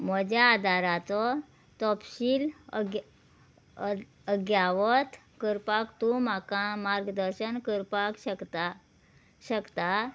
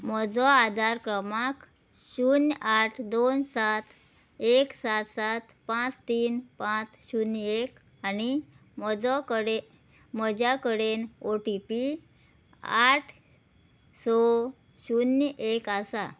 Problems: background sounds at intervals